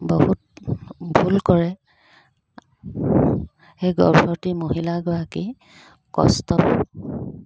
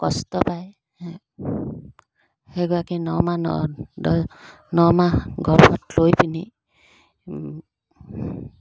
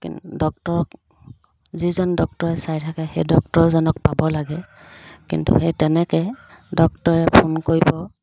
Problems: background sounds at intervals